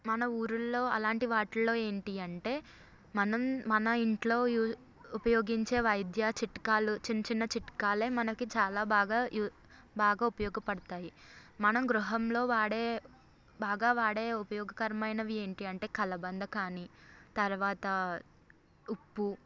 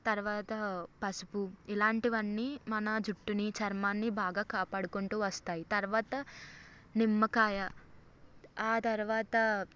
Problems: none marked